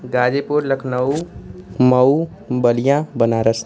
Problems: constant background noise